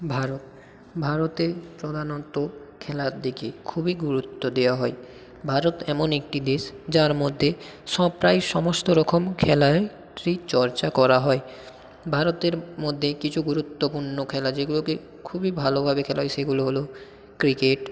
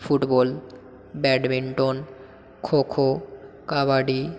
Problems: echo